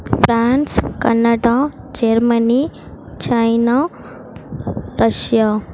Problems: constant background noise